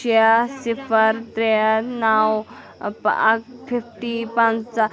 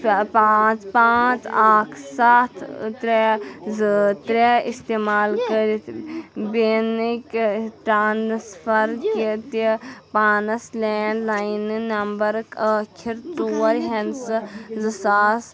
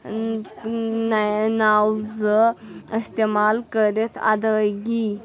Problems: background sounds at intervals, background conversations at intervals